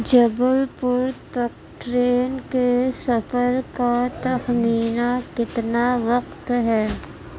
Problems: constant background noise